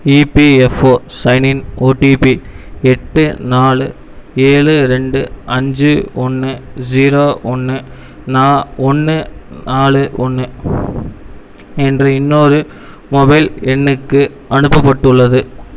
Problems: none marked